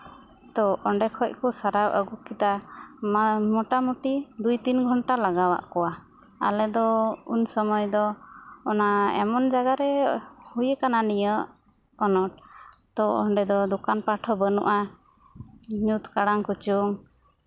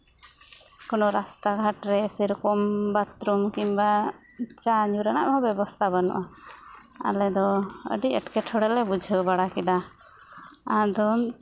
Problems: constant background noise